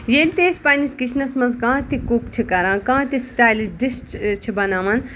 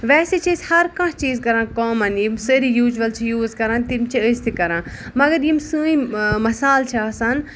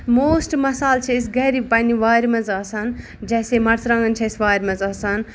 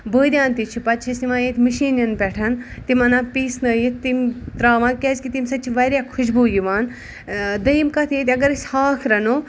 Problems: none marked